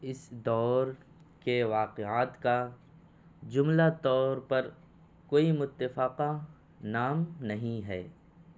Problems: none marked